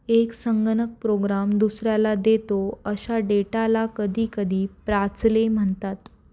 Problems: none marked